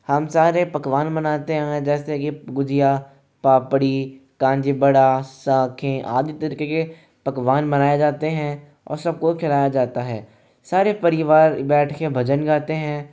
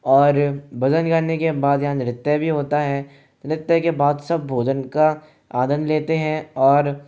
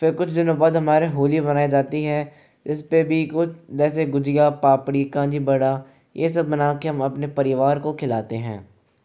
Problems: none marked